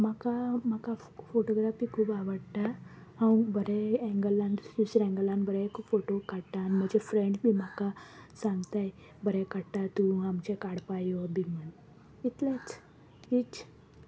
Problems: constant background noise